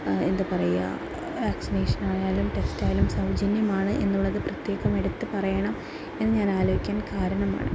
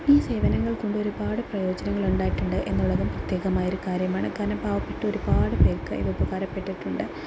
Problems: background sounds at intervals